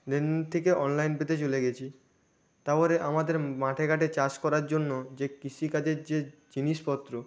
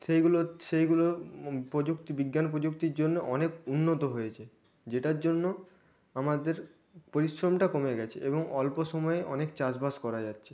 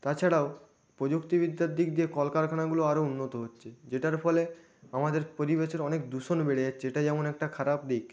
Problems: none marked